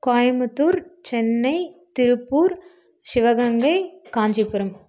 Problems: background sounds at intervals